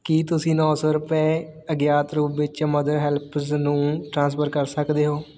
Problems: none marked